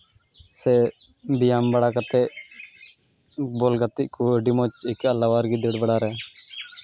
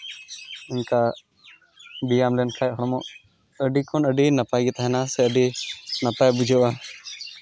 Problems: constant background noise